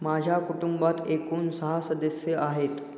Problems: echo